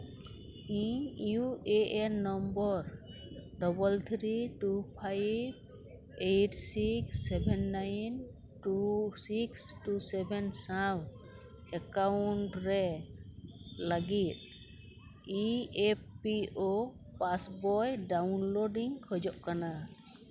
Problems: none marked